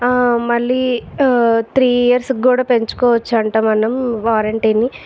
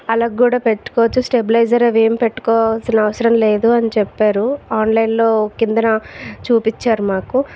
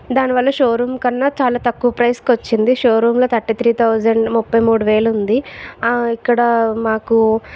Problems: none marked